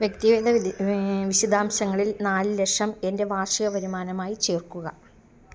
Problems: low volume